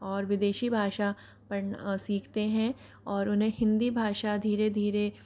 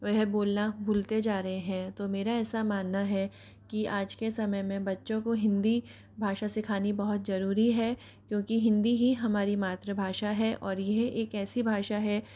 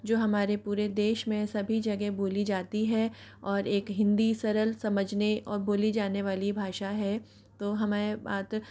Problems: background sounds at intervals